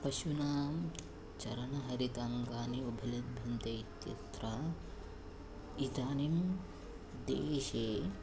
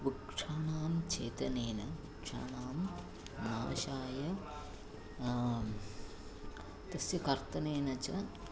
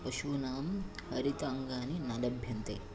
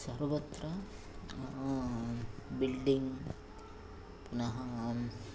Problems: low volume